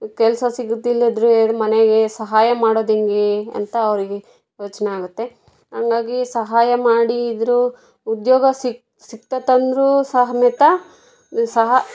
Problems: background conversations at intervals